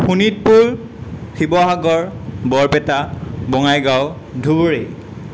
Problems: constant background noise